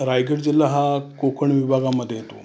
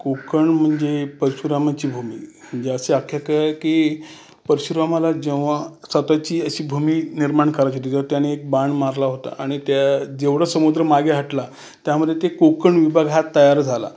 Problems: constant background noise, background conversations at intervals